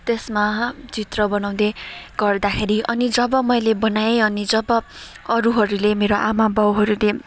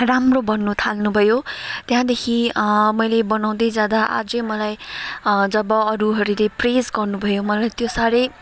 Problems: constant background noise